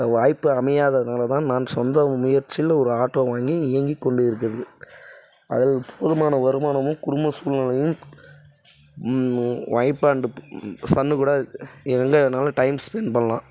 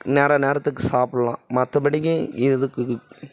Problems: none marked